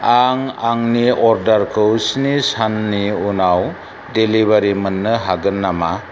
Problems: constant background noise